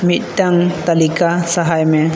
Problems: constant background noise